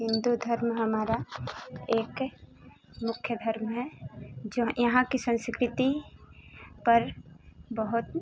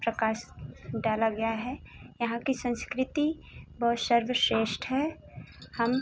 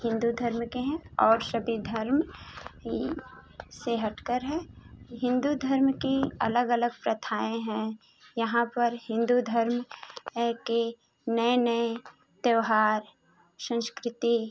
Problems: constant background noise